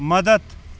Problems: constant background noise